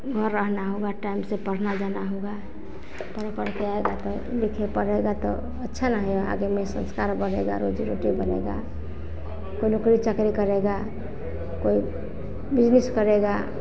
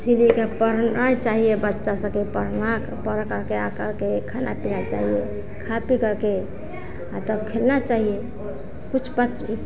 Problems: continuous background conversations